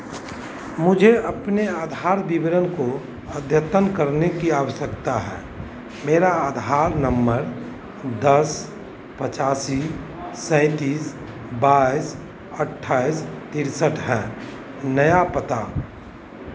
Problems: constant background noise, continuous background conversations